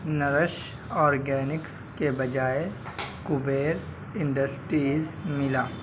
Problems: constant background noise